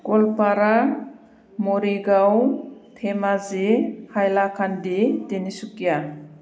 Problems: constant background noise